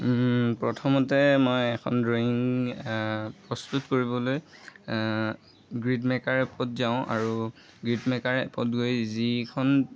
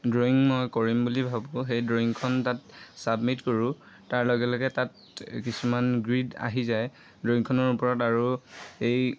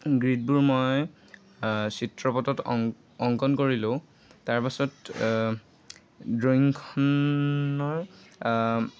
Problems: constant background noise, background conversations at intervals